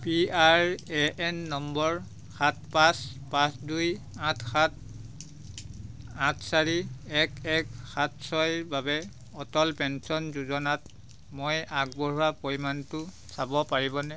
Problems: constant background noise